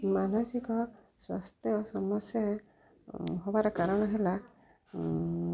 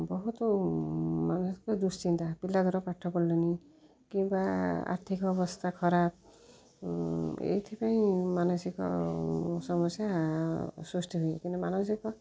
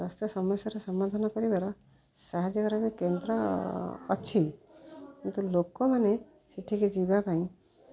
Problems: low volume